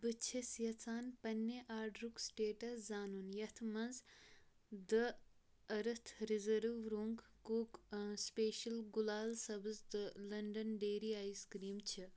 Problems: low volume